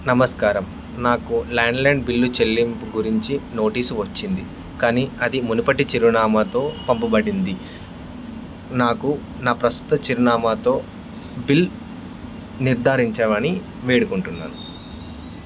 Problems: constant background noise